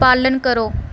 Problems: none marked